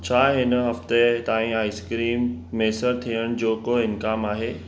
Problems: constant background noise